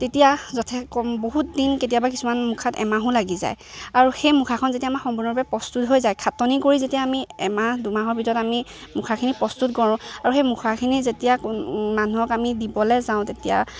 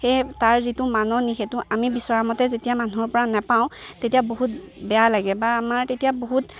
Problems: constant background noise, background conversations at intervals